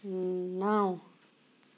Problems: none marked